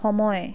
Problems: constant background noise, background conversations at intervals